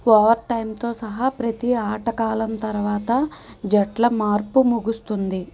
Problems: constant background noise